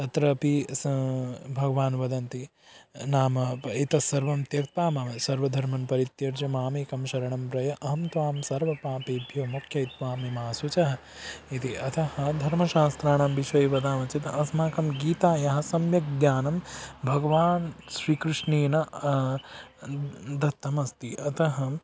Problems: background sounds at intervals